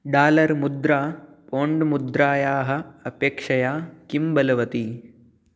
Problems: none marked